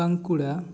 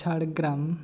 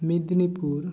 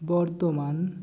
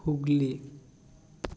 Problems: none marked